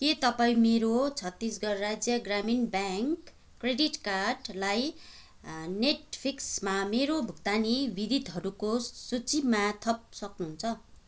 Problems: none marked